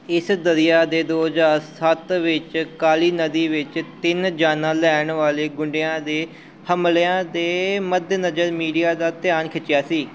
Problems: constant background noise